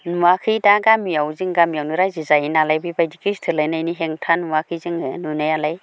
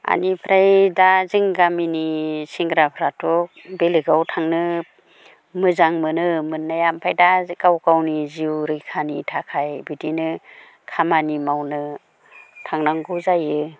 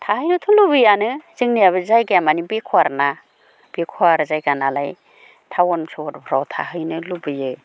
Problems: none marked